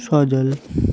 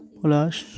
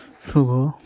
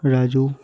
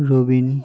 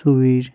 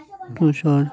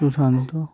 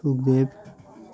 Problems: constant background noise